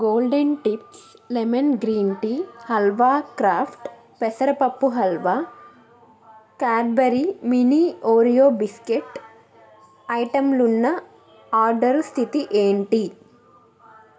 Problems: continuous background conversations